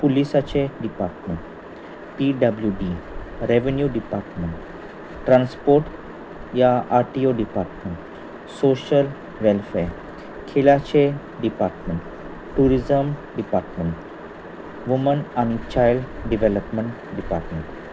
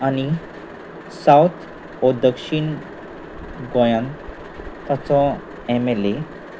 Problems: constant background noise